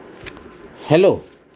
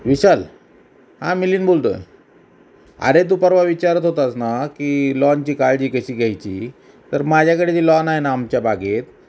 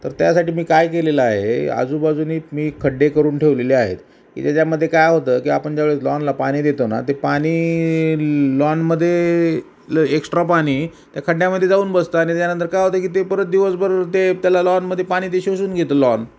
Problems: none marked